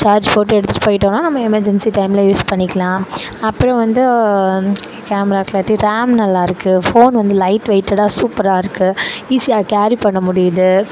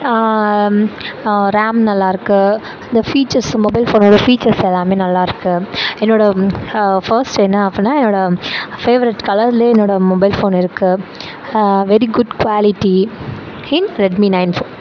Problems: constant background noise